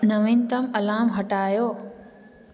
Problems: constant background noise, echo